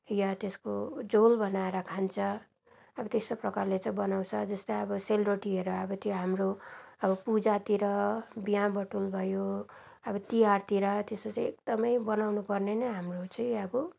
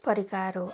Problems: background sounds at intervals, background conversations at intervals